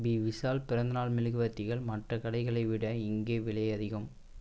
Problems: none marked